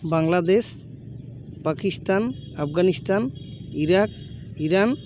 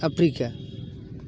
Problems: background sounds at intervals